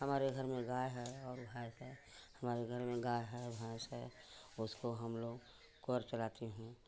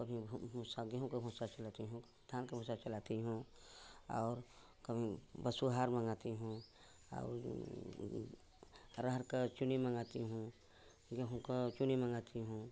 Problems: constant background noise, continuous background conversations